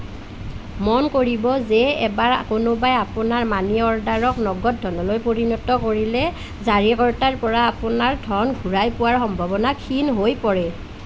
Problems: none marked